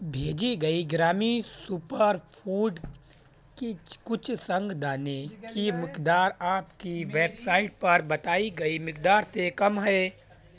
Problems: constant background noise